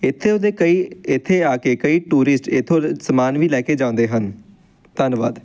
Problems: background sounds at intervals